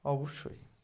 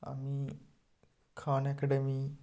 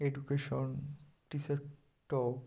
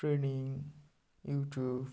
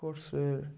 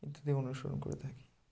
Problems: none marked